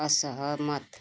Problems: none marked